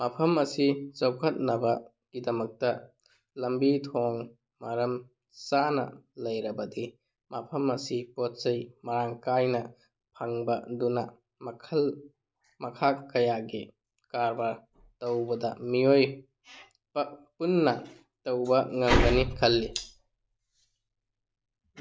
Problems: none marked